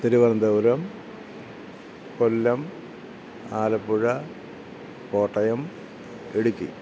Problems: none marked